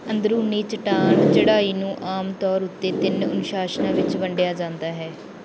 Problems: background sounds at intervals